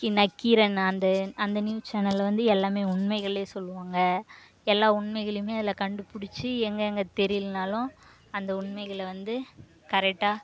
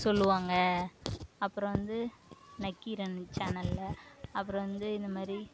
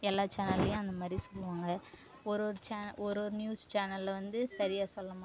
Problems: background sounds at intervals